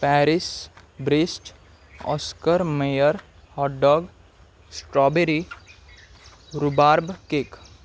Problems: constant background noise